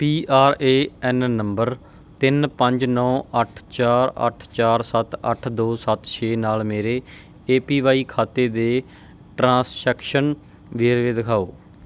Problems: background sounds at intervals